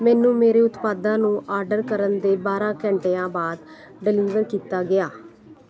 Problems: constant background noise